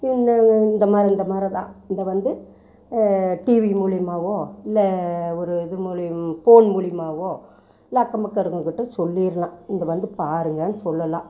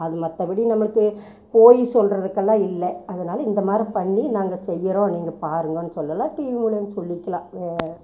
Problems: constant background noise